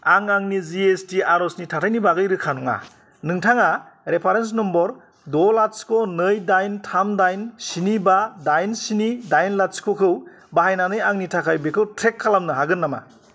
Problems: constant background noise